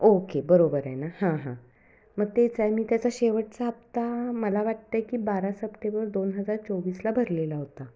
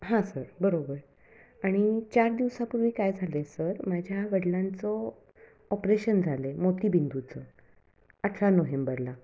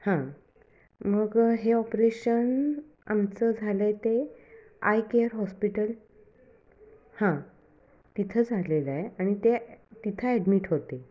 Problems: none marked